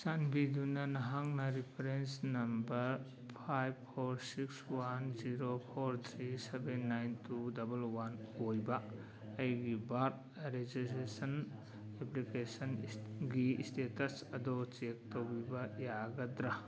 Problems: background conversations at intervals